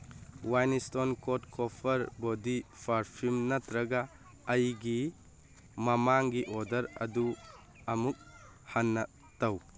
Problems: background conversations at intervals